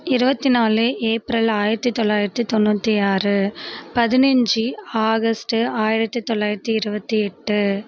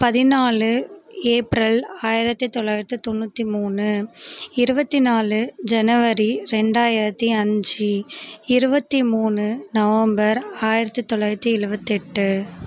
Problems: constant background noise